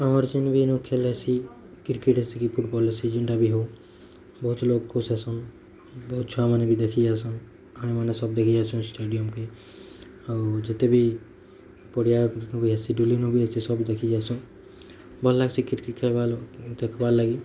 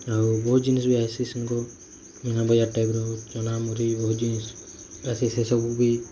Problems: none marked